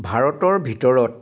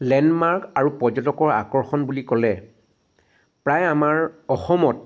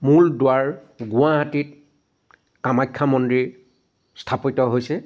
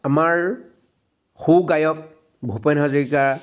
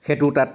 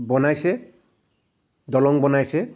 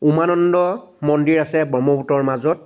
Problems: constant background noise